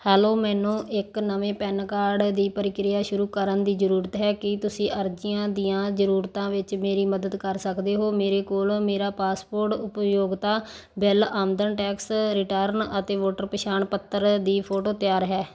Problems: background sounds at intervals